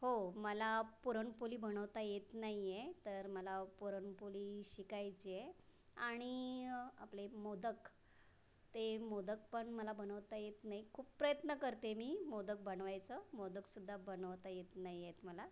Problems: background sounds at intervals